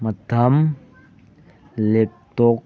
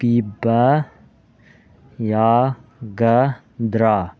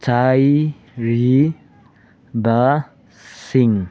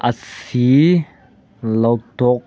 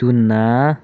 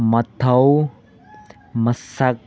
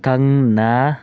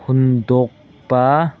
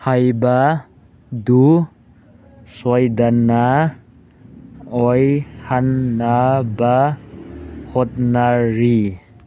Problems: background sounds at intervals